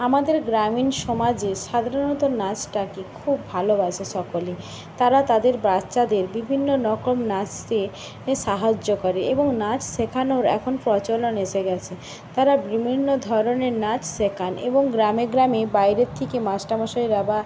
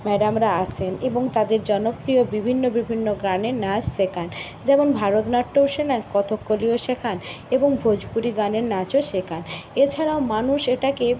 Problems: constant background noise